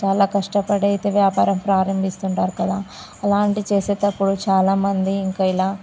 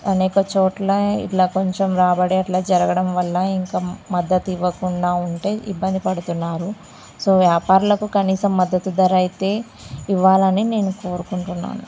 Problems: constant background noise